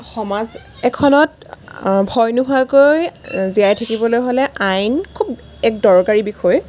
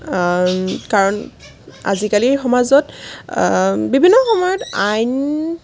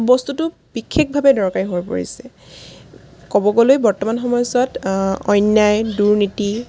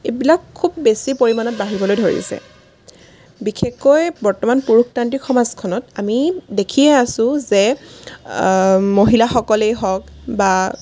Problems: background sounds at intervals